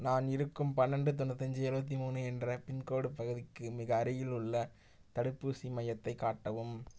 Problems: low volume